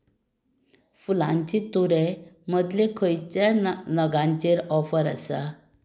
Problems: none marked